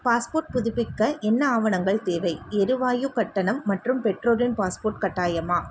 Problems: none marked